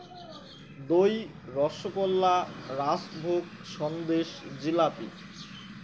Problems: constant background noise, background conversations at intervals